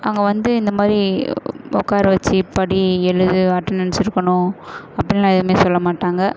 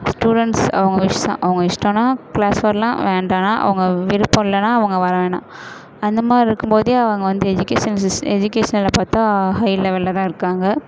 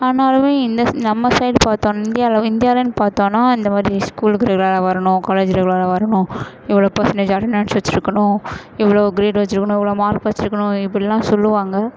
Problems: none marked